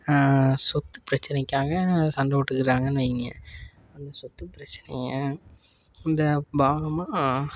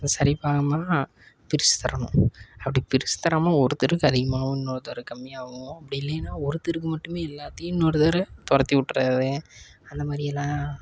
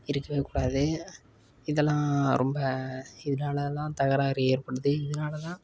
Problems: constant background noise